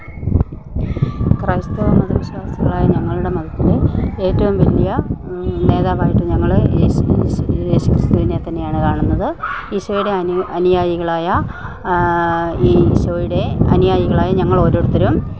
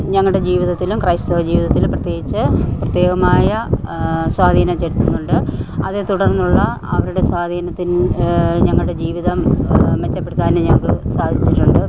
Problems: none marked